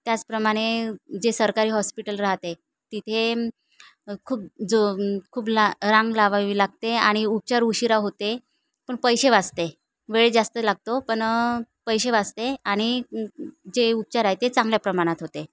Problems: none marked